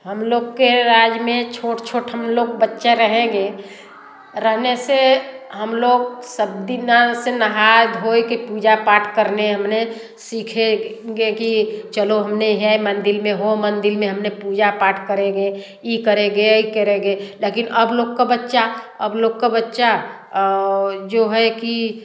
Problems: background sounds at intervals, background conversations at intervals, echo